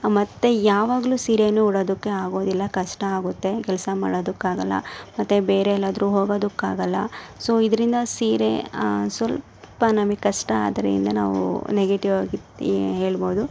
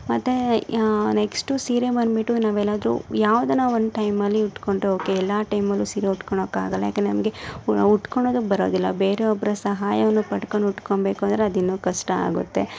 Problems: background sounds at intervals